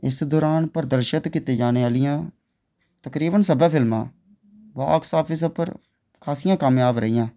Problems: none marked